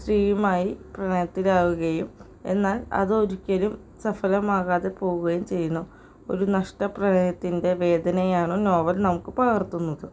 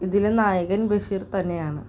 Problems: none marked